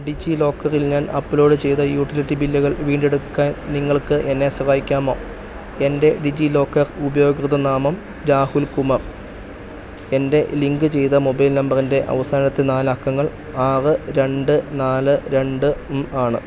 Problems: none marked